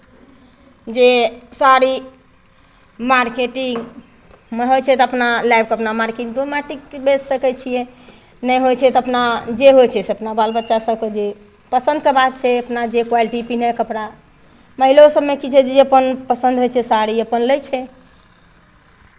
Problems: none marked